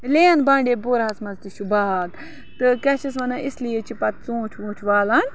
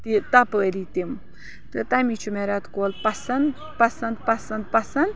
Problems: constant background noise